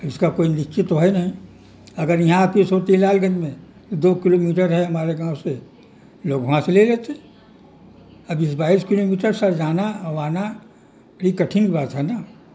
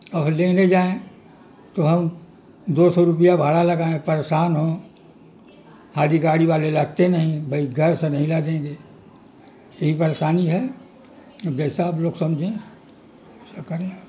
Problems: constant background noise